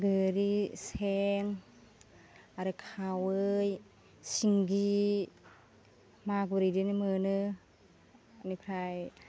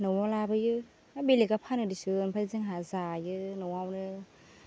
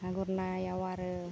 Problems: none marked